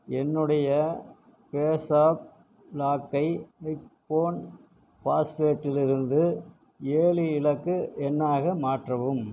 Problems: constant background noise